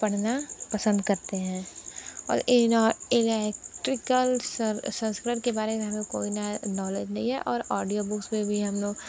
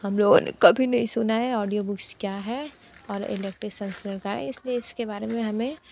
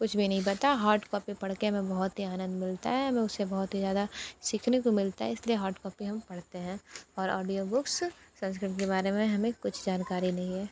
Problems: constant background noise